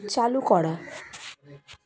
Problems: constant background noise, continuous background conversations